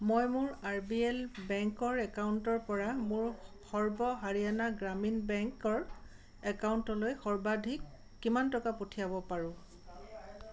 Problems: constant background noise